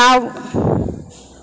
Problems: none marked